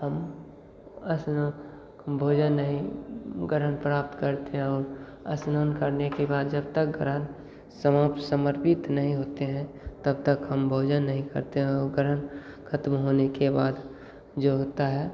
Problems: constant background noise, echo